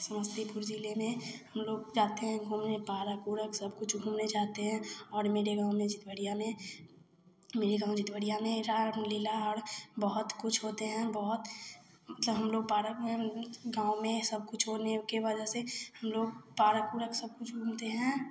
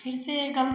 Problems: none marked